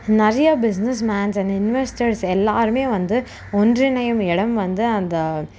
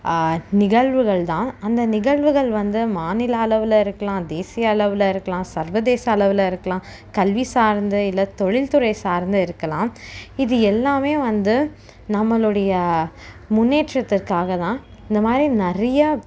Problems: none marked